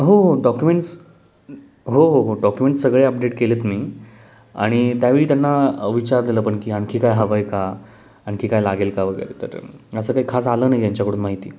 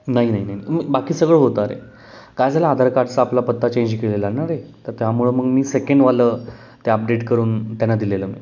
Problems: none marked